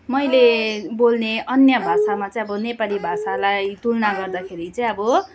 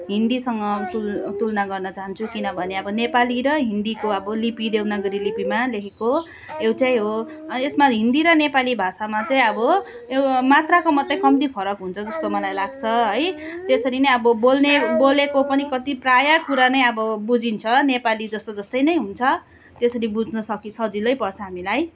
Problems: continuous background conversations